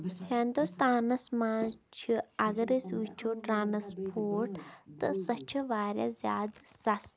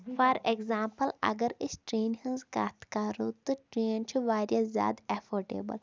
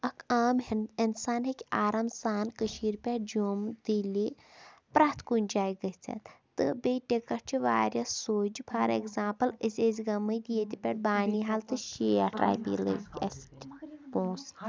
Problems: background sounds at intervals